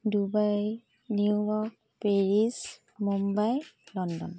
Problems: constant background noise